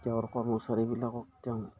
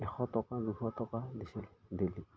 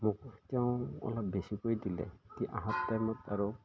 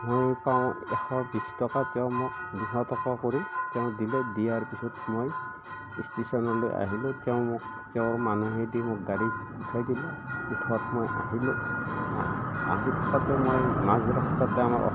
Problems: none marked